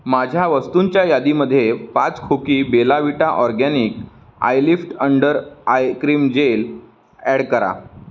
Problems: background sounds at intervals